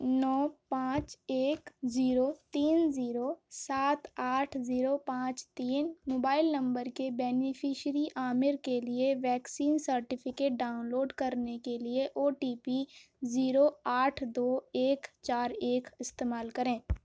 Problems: none marked